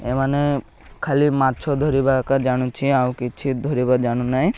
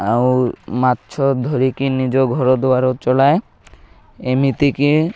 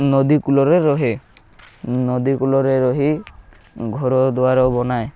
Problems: none marked